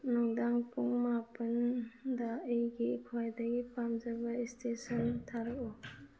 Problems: none marked